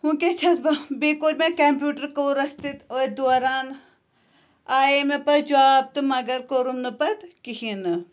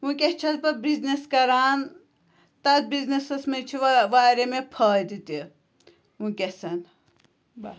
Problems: constant background noise